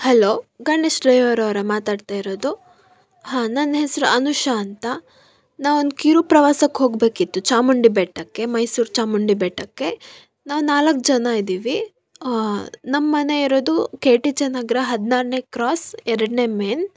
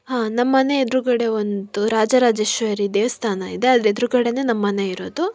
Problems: none marked